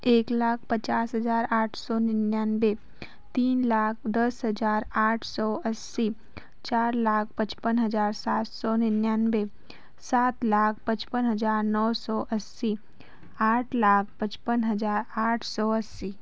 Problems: none marked